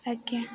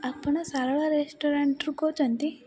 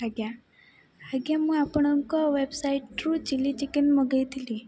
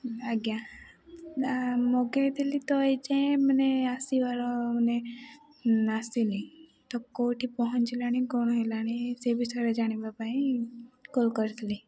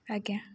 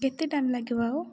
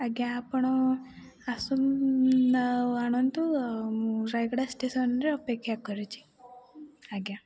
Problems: background sounds at intervals, low volume